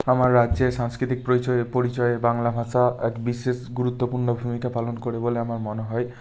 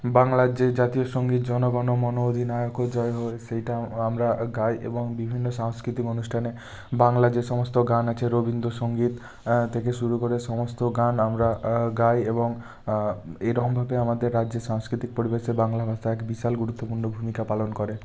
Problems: background sounds at intervals